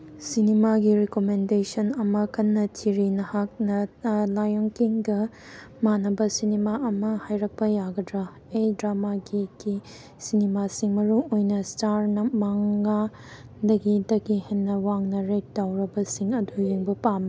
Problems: background sounds at intervals